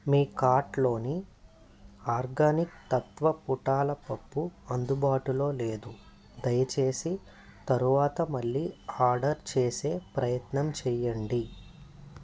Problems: none marked